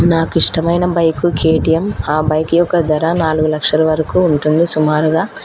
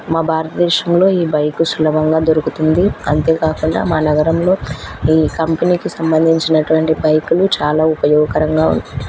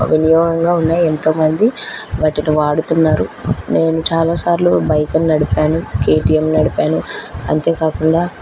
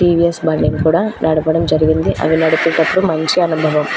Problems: constant background noise